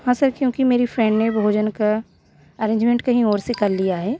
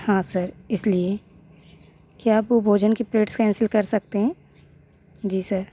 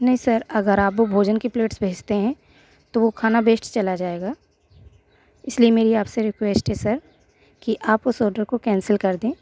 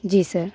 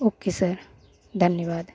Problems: constant background noise